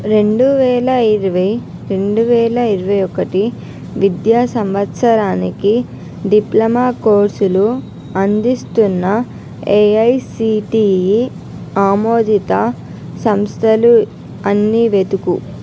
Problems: constant background noise